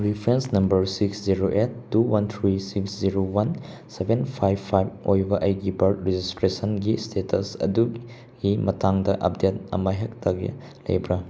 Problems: background sounds at intervals